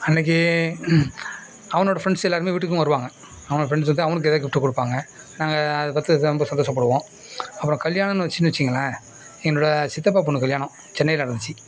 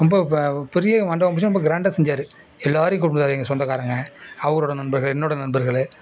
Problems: none marked